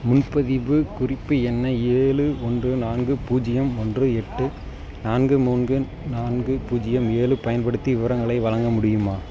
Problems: background sounds at intervals, background conversations at intervals